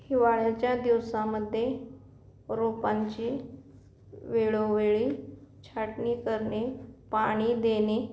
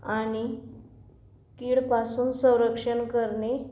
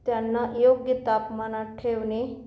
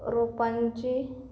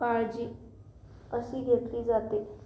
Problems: none marked